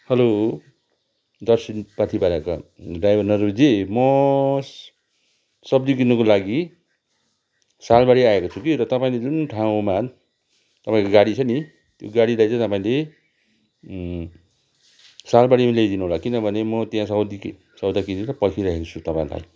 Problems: none marked